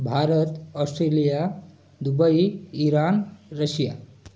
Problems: constant background noise, background conversations at intervals